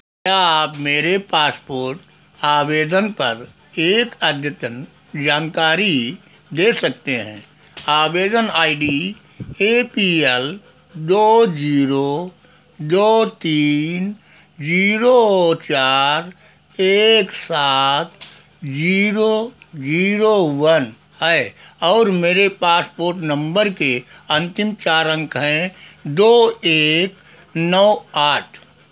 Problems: background sounds at intervals